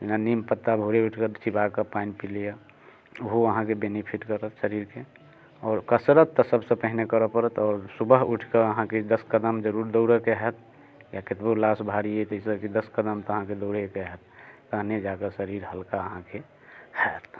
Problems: none marked